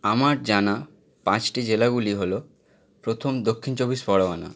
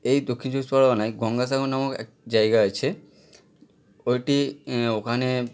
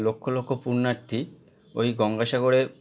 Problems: none marked